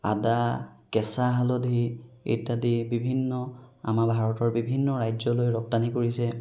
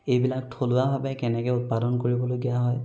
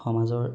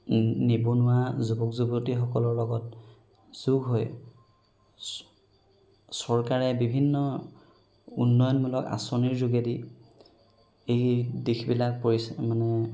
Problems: background sounds at intervals